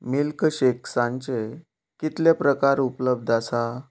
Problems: background sounds at intervals